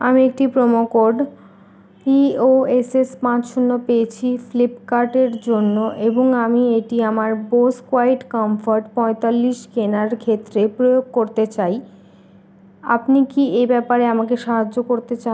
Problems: background sounds at intervals